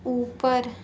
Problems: constant background noise